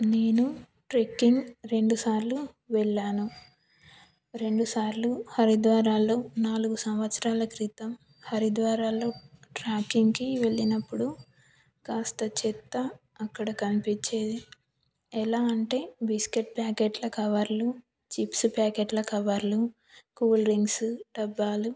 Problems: background conversations at intervals